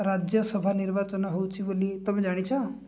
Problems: background sounds at intervals